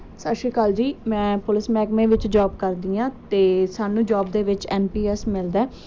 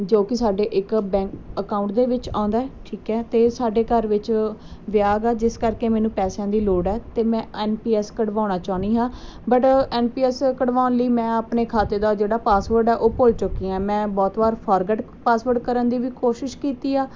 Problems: background sounds at intervals